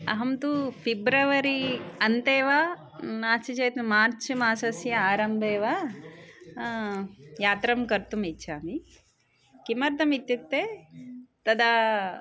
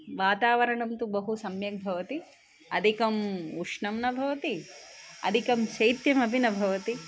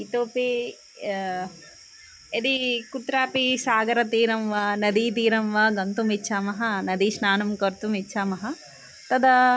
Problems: none marked